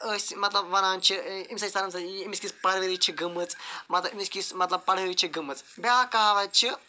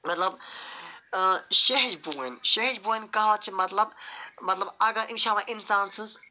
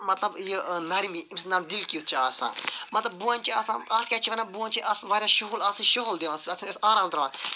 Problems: none marked